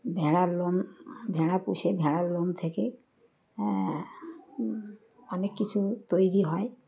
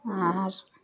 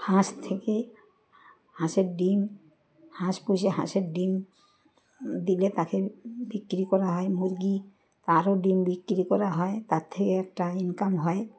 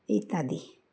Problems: constant background noise, background conversations at intervals